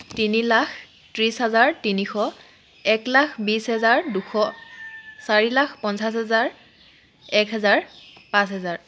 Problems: constant background noise